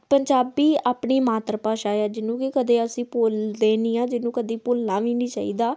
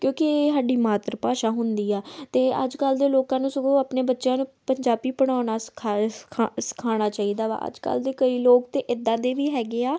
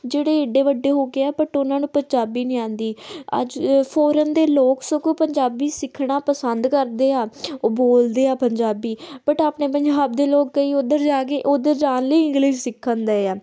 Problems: none marked